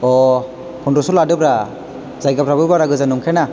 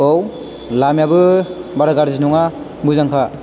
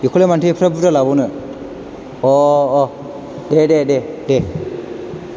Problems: background sounds at intervals